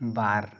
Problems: background conversations at intervals